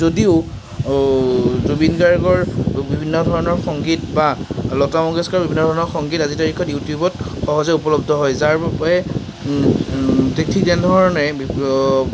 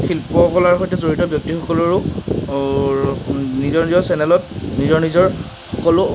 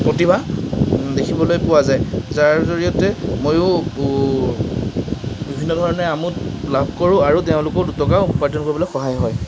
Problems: none marked